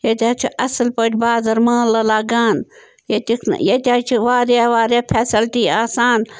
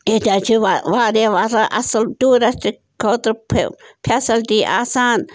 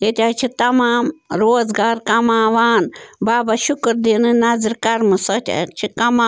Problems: background sounds at intervals